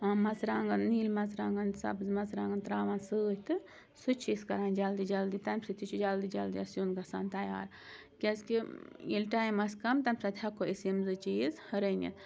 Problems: constant background noise